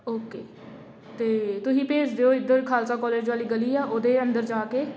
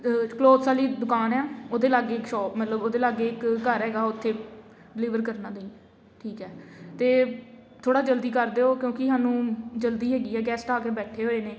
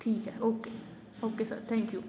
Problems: constant background noise